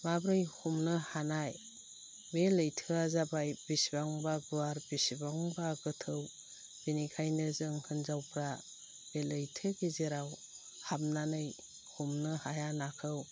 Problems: low volume